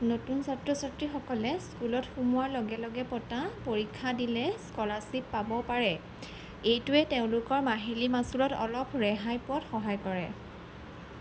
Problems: none marked